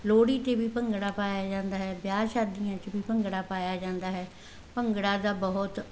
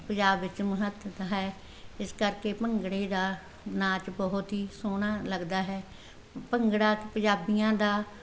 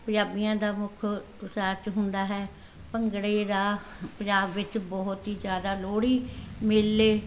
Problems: background sounds at intervals